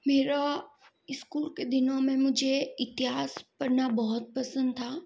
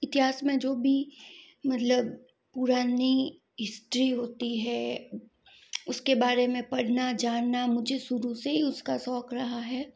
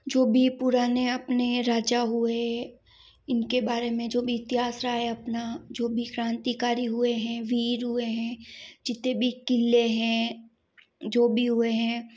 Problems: background sounds at intervals